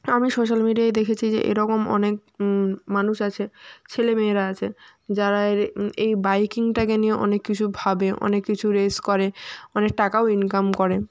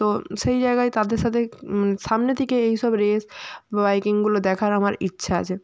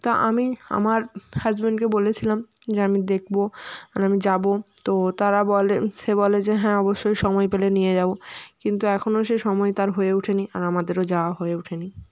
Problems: none marked